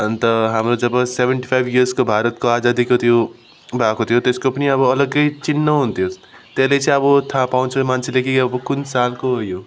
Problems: none marked